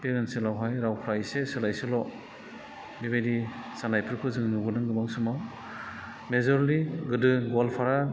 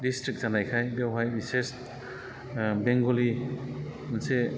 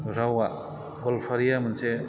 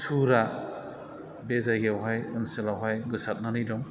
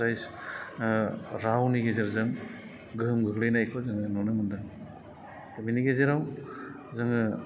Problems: constant background noise